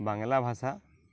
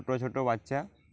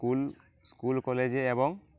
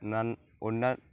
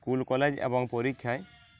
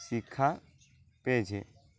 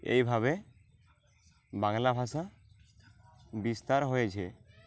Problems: none marked